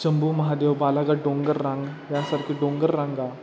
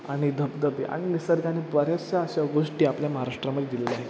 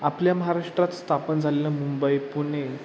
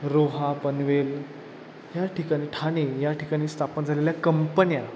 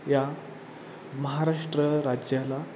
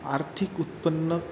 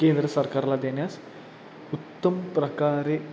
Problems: constant background noise